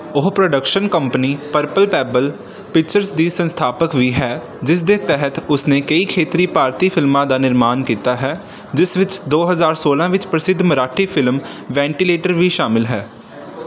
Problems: background sounds at intervals